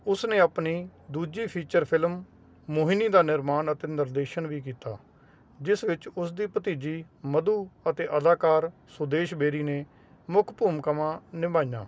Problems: constant background noise